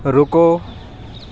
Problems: background sounds at intervals